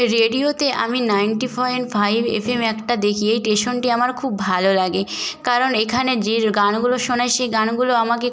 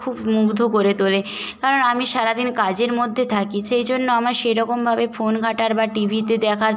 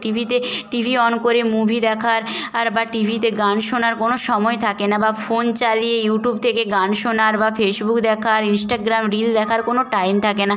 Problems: background sounds at intervals